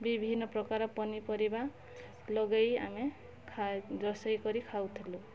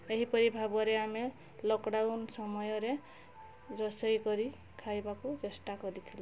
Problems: none marked